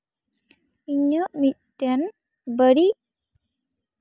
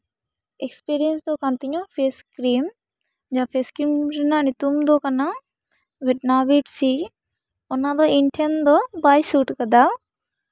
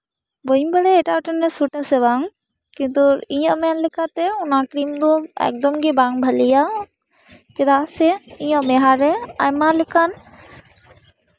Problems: none marked